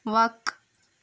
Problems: background sounds at intervals